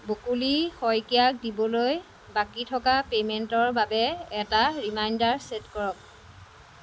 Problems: constant background noise